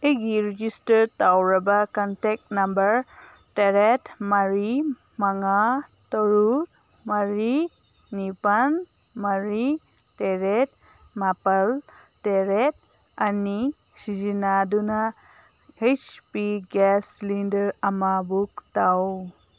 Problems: constant background noise